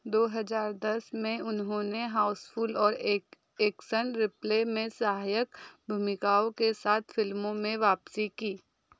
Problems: background sounds at intervals